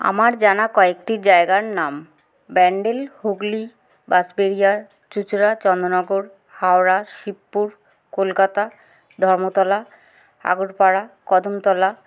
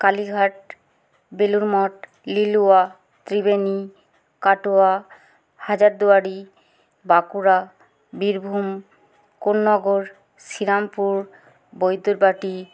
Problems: background sounds at intervals